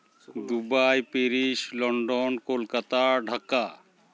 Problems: background sounds at intervals